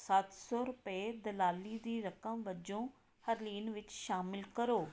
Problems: none marked